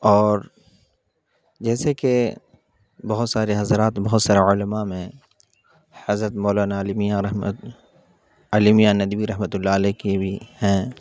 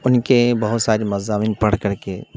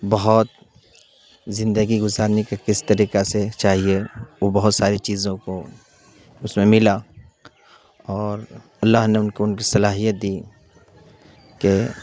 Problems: constant background noise